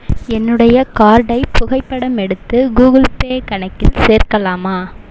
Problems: none marked